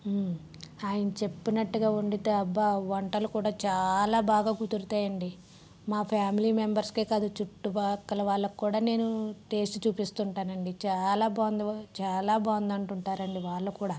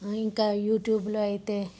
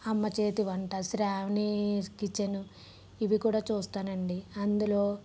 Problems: background sounds at intervals, low volume